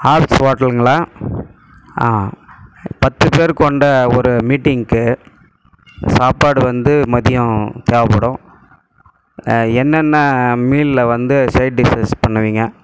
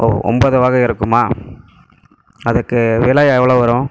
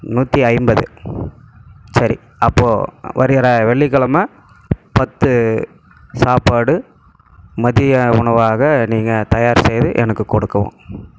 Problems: none marked